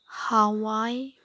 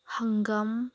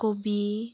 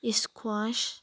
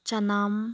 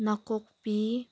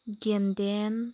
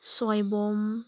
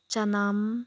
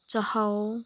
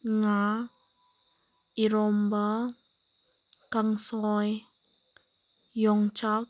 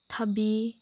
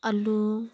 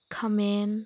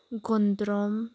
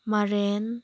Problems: background sounds at intervals